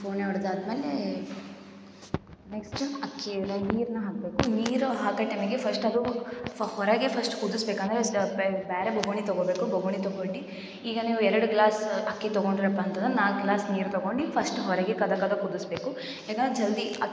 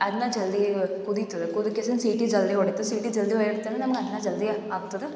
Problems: low volume